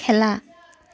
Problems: none marked